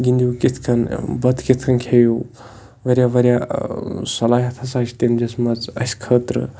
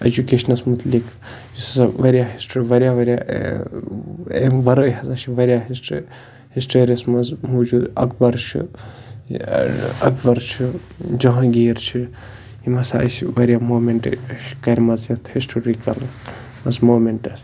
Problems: constant background noise